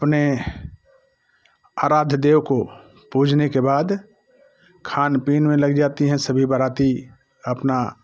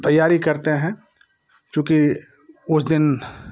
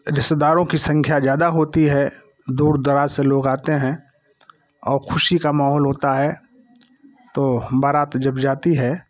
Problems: constant background noise